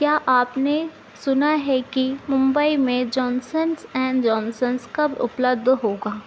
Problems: none marked